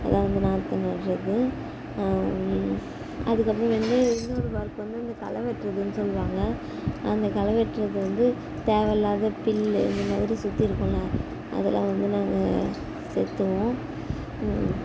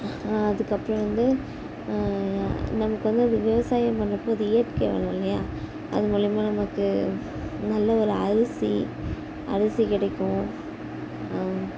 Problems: none marked